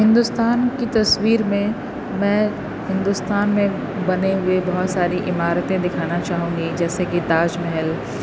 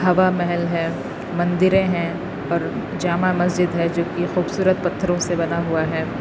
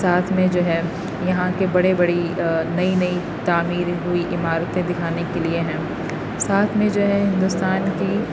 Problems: constant background noise